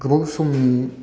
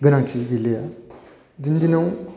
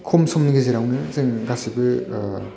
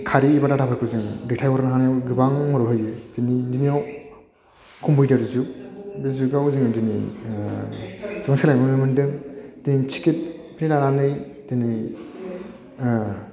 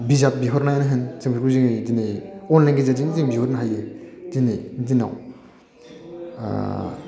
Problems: none marked